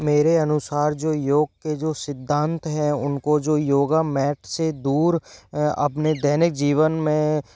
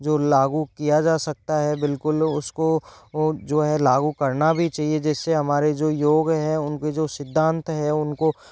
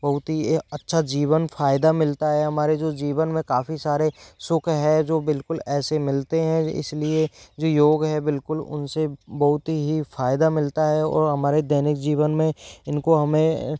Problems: background sounds at intervals